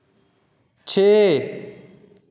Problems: echo